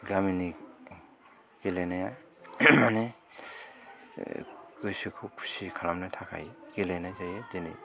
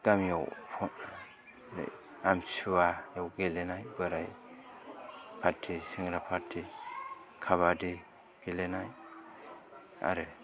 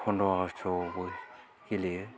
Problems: background sounds at intervals, continuous background conversations, low volume